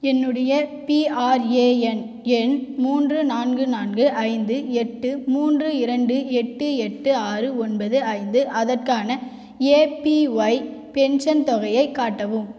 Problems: none marked